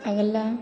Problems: constant background noise, echo